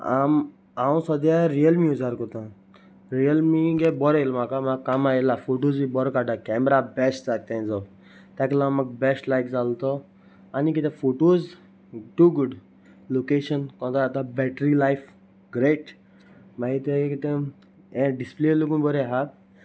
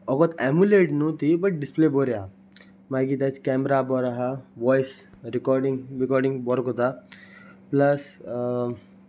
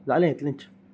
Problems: none marked